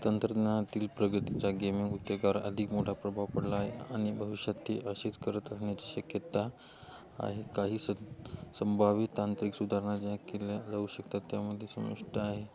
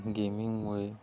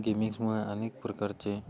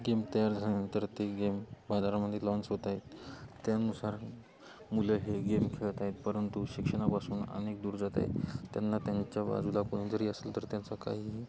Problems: none marked